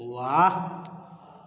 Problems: background sounds at intervals